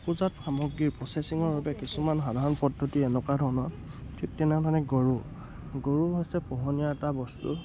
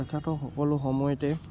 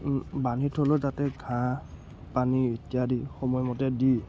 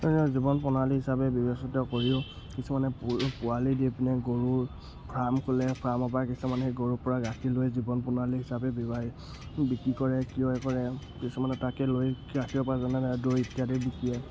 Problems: constant background noise